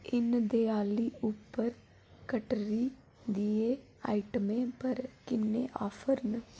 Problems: none marked